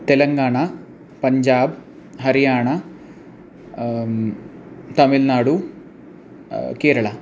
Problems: constant background noise